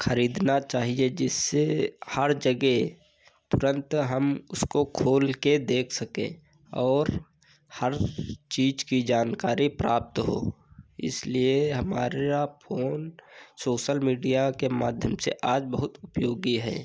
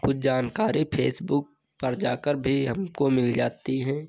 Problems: none marked